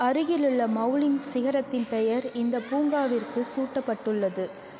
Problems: continuous background conversations